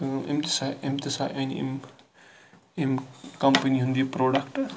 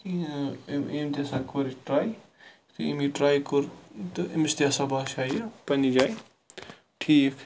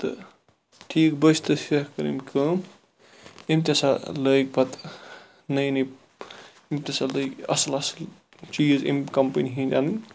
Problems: constant background noise